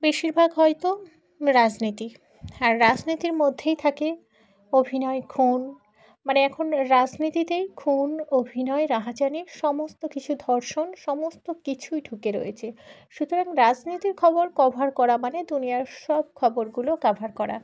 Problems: background conversations at intervals